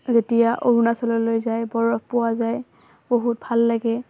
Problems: constant background noise